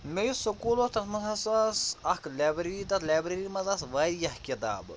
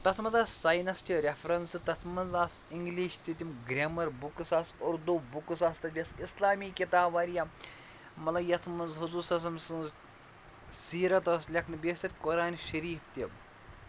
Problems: constant background noise